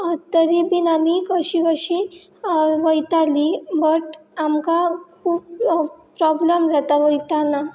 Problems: none marked